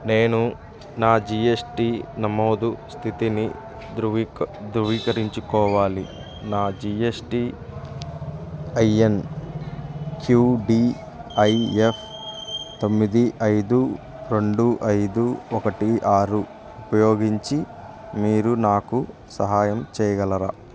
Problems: background sounds at intervals